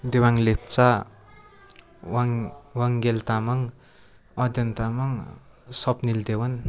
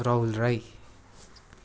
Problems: none marked